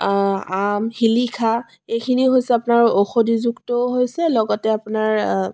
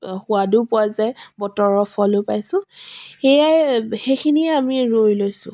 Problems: none marked